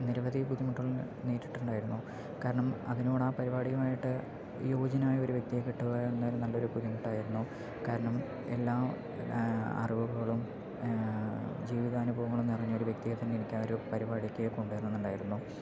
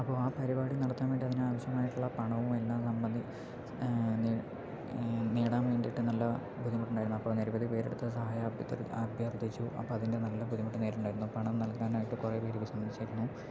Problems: low volume